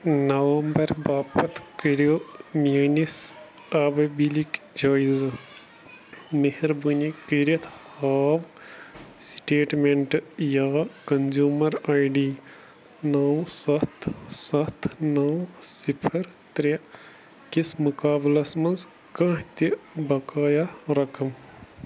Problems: constant background noise